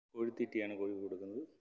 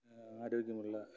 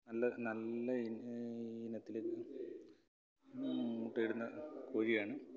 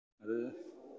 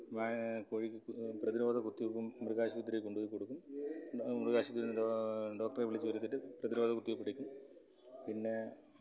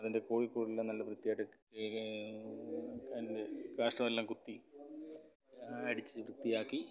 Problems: background conversations at intervals, low volume